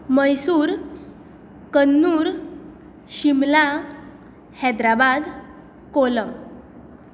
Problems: constant background noise